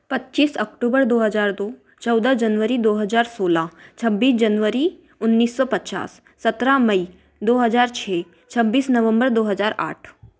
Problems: none marked